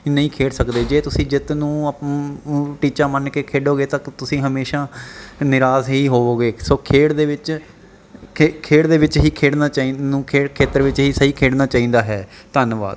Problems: none marked